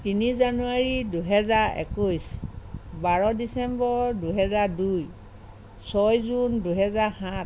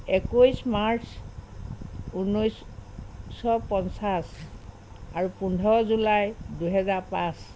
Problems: constant background noise